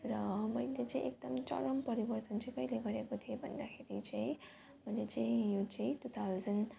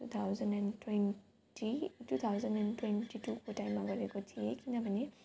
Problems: constant background noise